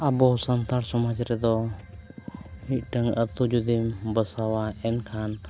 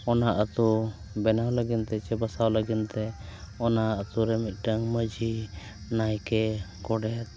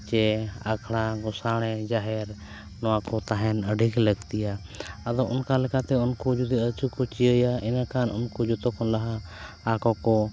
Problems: constant background noise